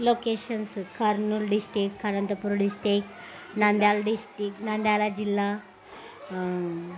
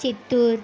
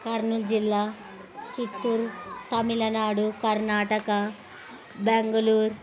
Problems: constant background noise